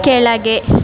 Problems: constant background noise